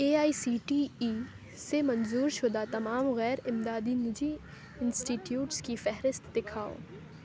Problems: constant background noise, background conversations at intervals